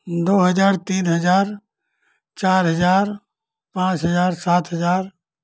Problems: none marked